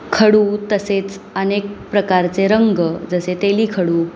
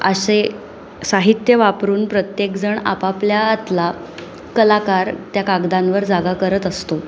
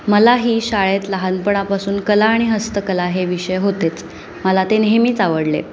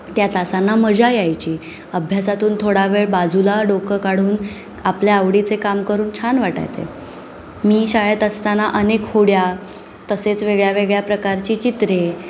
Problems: constant background noise, continuous background conversations